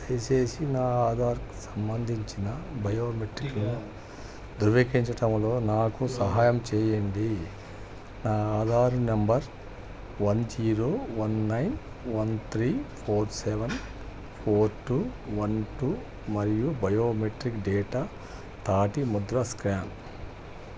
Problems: none marked